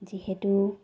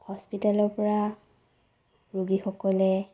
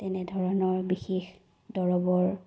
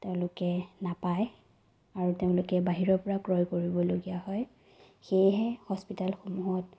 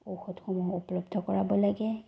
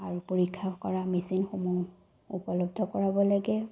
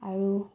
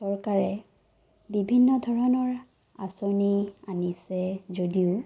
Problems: none marked